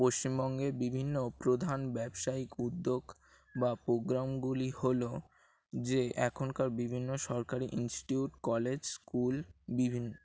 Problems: constant background noise